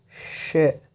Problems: none marked